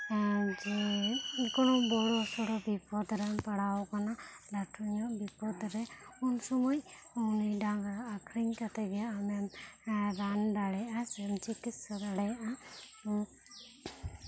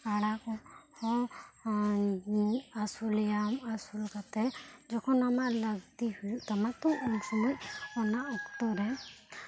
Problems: low volume